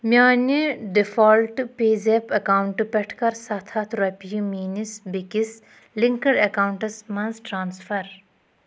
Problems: none marked